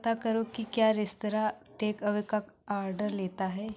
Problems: constant background noise